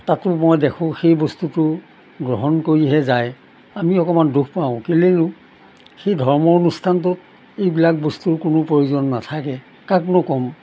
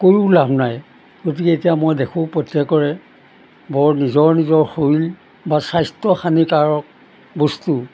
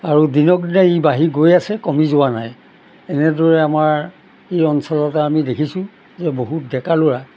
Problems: background sounds at intervals